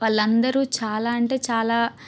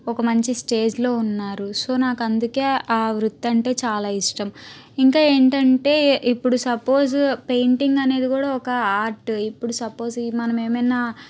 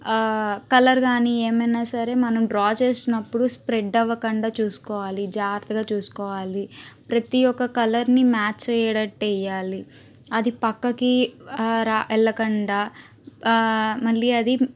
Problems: constant background noise